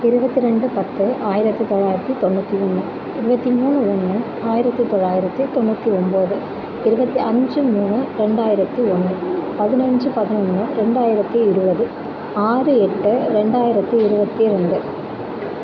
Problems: constant background noise